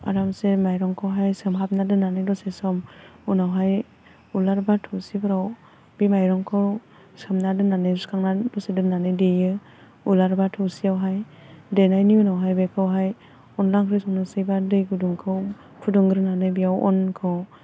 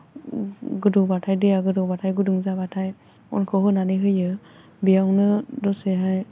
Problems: none marked